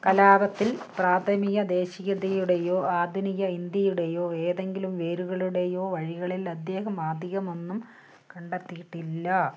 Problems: none marked